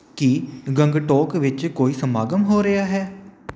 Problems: none marked